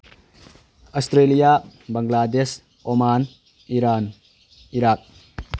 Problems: background sounds at intervals